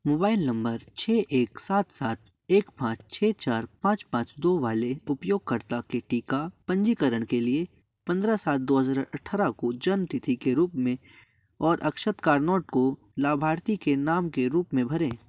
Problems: background sounds at intervals